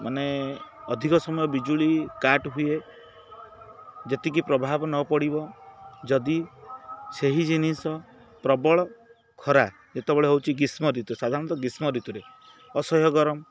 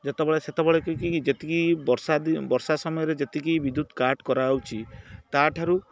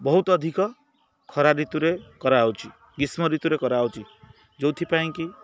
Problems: none marked